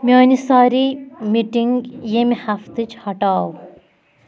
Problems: background sounds at intervals